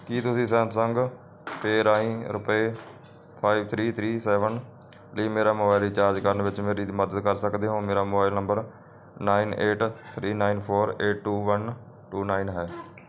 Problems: none marked